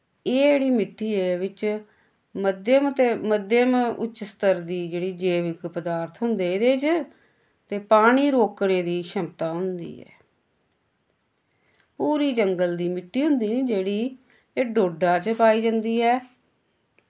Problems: constant background noise